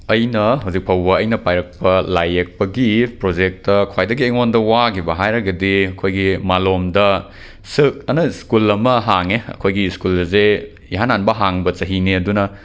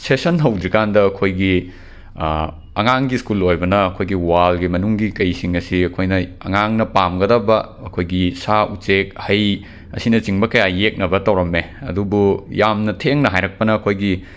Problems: background sounds at intervals